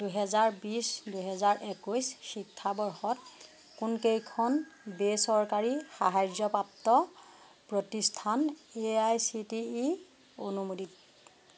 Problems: constant background noise